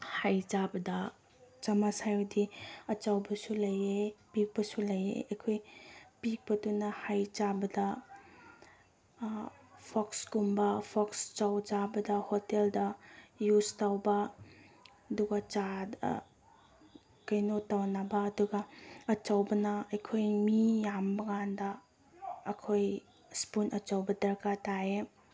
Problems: background sounds at intervals